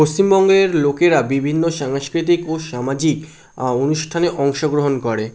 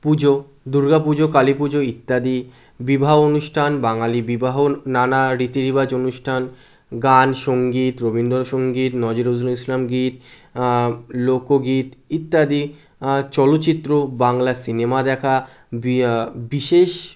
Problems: none marked